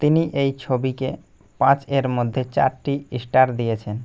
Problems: none marked